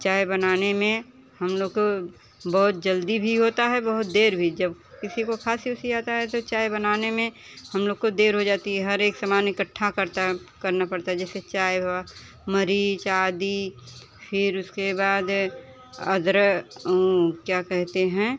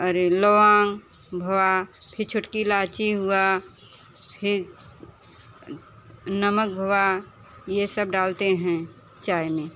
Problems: constant background noise, continuous background conversations